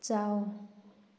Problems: none marked